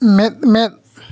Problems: none marked